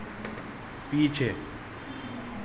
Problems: none marked